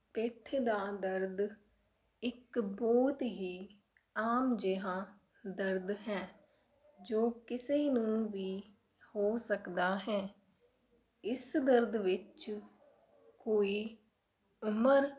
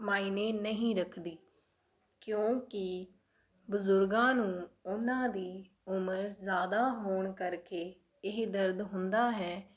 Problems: background sounds at intervals